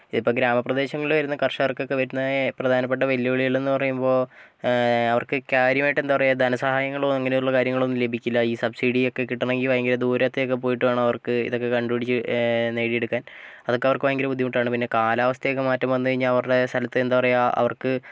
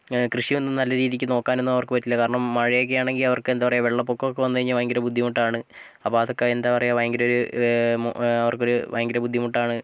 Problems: none marked